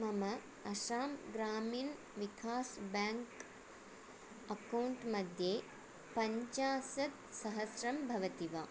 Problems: none marked